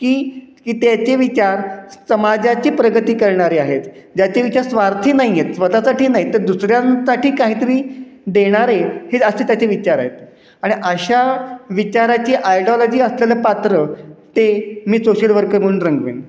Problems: constant background noise, echo